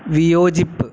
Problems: constant background noise